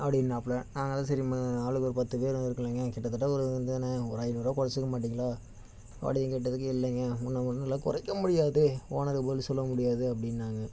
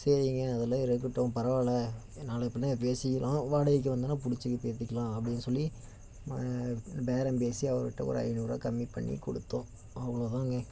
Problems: constant background noise